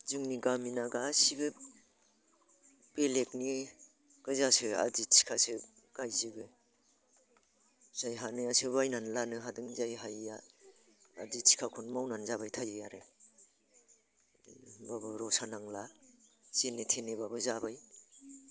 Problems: constant background noise